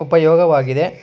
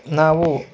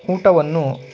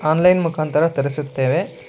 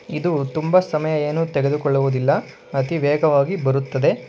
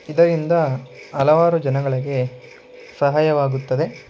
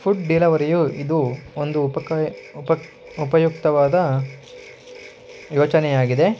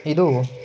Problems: background sounds at intervals